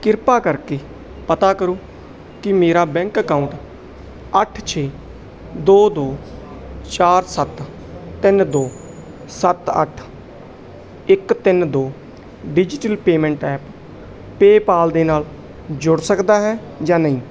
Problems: background sounds at intervals